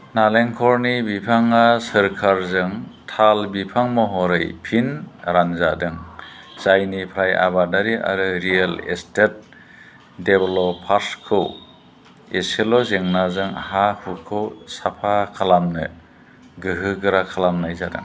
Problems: constant background noise